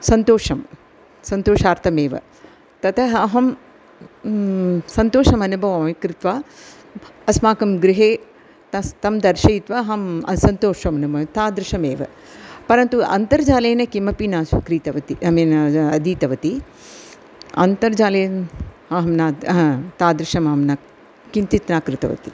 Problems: none marked